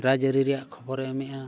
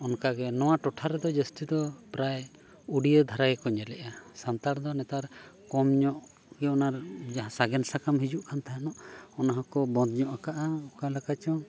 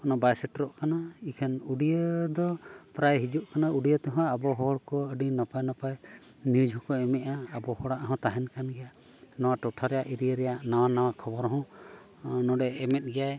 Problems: background sounds at intervals